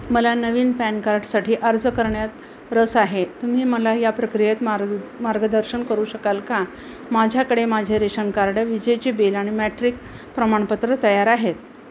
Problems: constant background noise